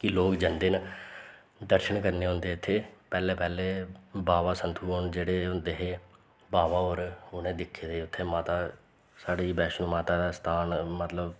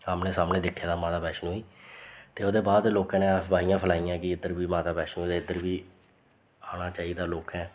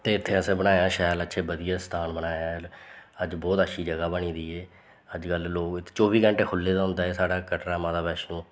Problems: constant background noise